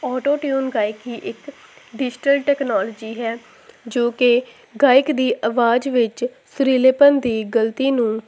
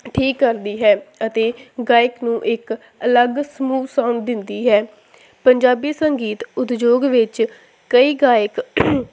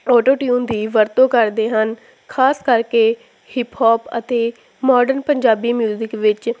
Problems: constant background noise